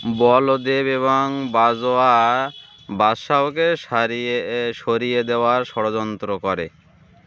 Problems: constant background noise